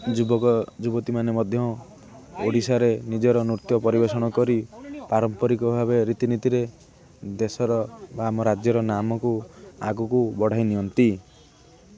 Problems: constant background noise, continuous background conversations